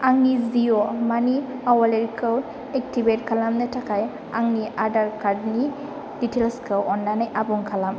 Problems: constant background noise